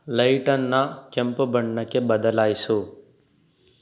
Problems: none marked